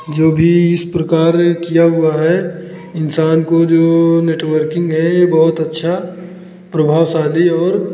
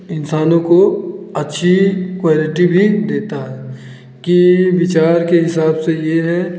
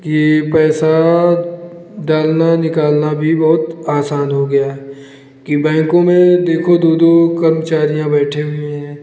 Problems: constant background noise